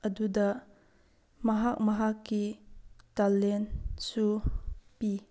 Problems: background sounds at intervals